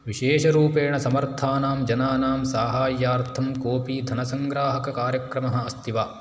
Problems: none marked